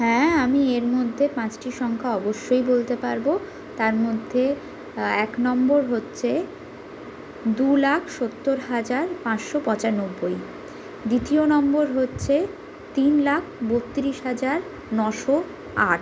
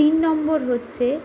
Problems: background sounds at intervals